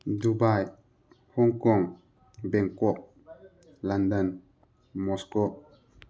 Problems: background conversations at intervals